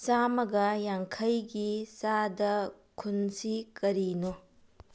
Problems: low volume